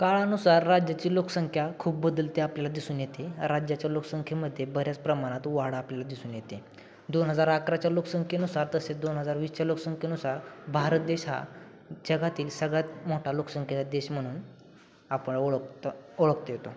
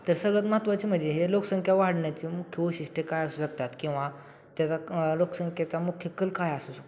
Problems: background sounds at intervals